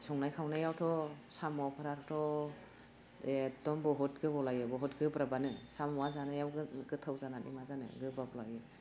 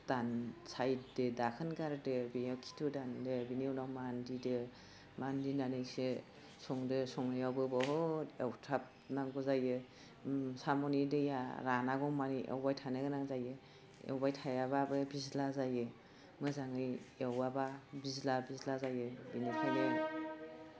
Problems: none marked